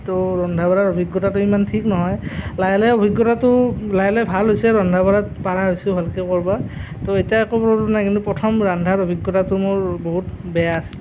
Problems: none marked